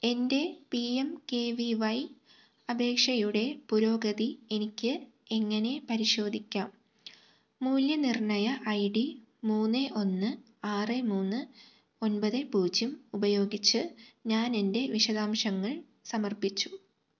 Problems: none marked